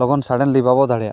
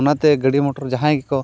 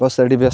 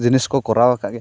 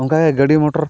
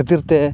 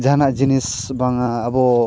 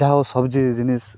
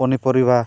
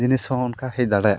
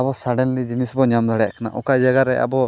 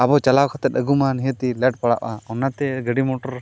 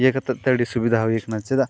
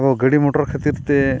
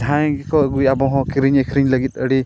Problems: background sounds at intervals